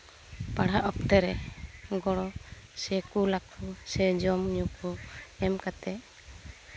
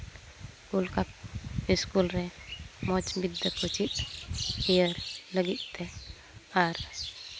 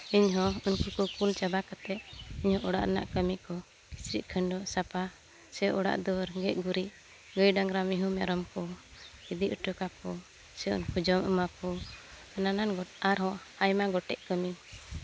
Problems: none marked